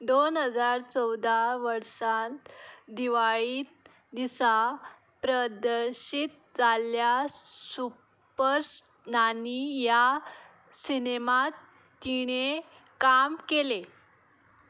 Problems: background sounds at intervals